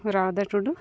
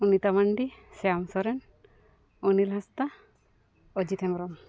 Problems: none marked